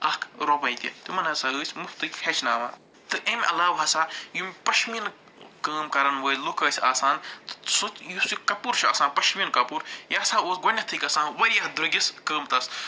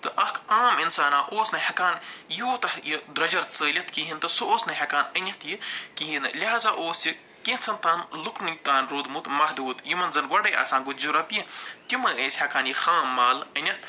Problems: none marked